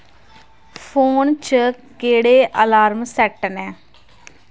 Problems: none marked